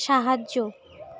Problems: constant background noise